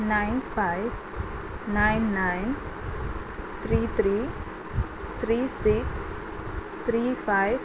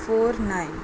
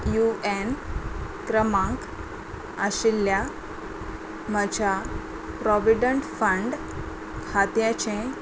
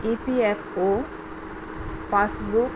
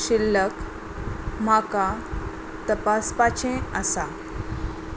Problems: constant background noise